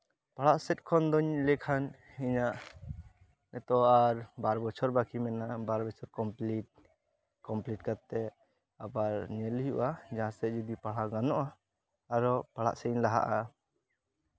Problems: none marked